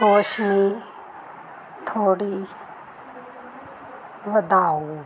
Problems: background sounds at intervals